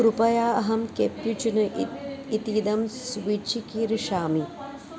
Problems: constant background noise, continuous background conversations